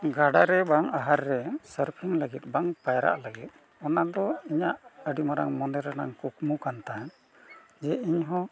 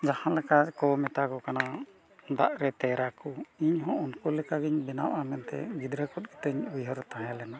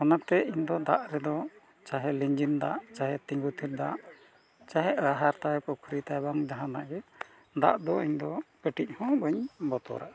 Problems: none marked